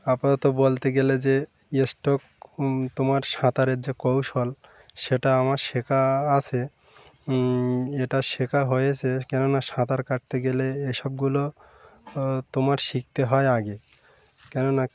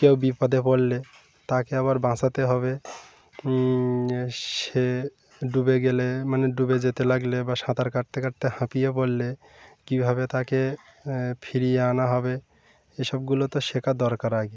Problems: constant background noise, background conversations at intervals